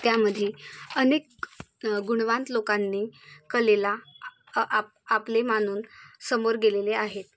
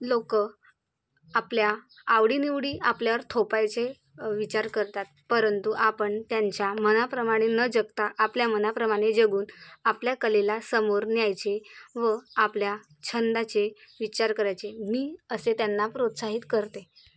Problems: none marked